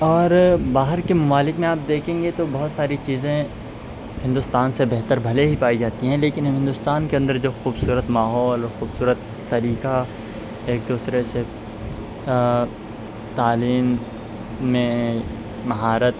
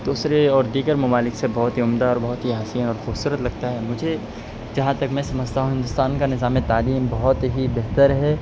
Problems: constant background noise